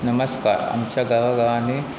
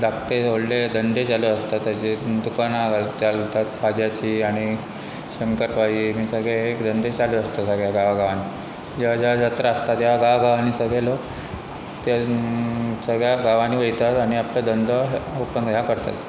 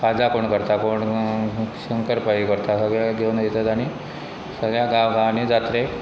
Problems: constant background noise